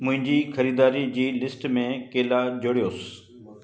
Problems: constant background noise, echo